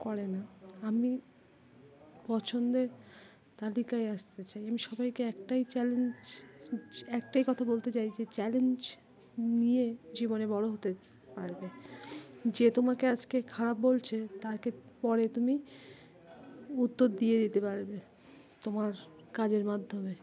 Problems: constant background noise, continuous background conversations